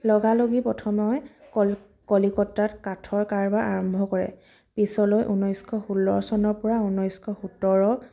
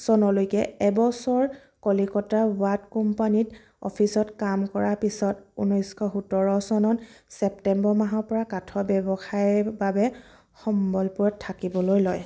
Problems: constant background noise, background conversations at intervals